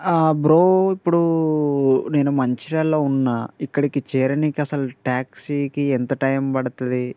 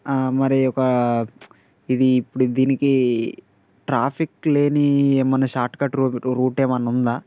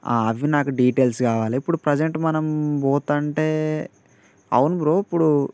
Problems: constant background noise